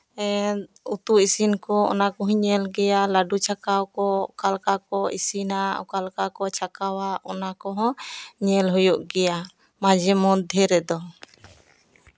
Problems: none marked